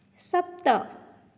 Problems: none marked